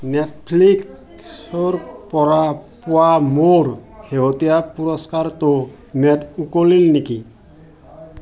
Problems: background sounds at intervals, background conversations at intervals